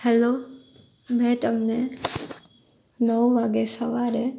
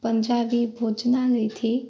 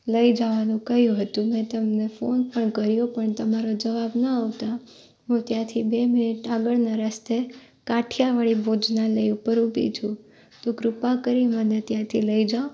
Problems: constant background noise